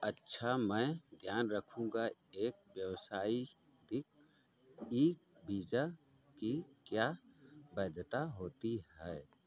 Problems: none marked